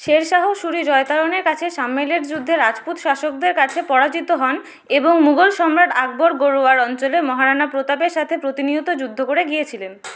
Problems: constant background noise